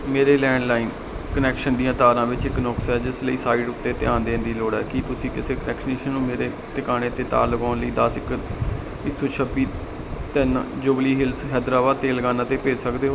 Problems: none marked